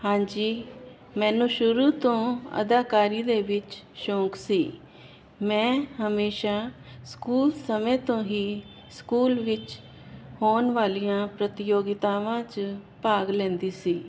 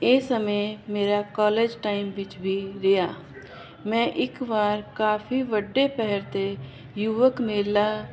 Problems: constant background noise